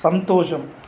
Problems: constant background noise